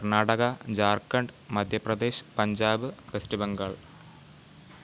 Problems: constant background noise, low volume